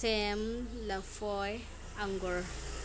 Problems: background sounds at intervals